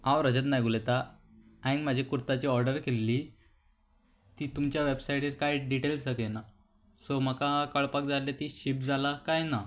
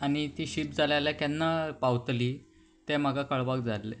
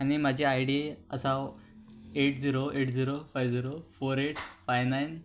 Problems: none marked